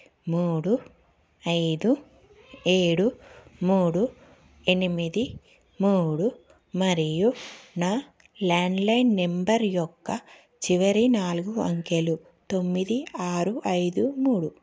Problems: none marked